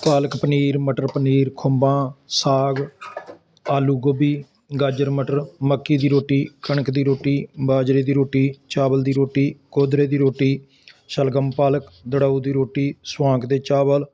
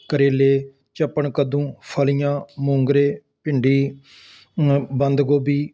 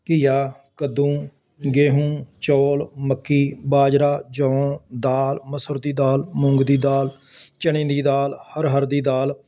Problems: constant background noise